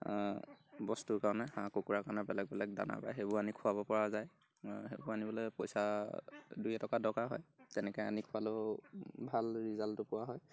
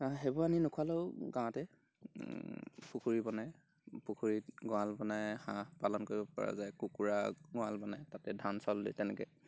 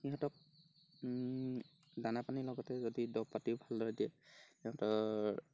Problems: none marked